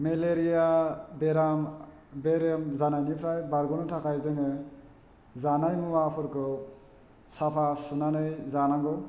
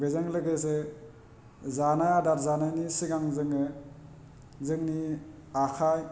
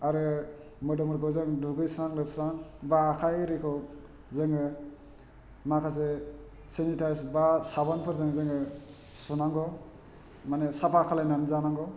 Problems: low volume